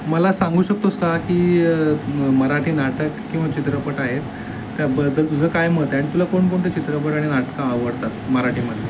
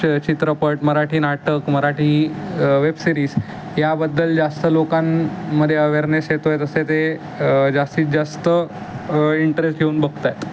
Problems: constant background noise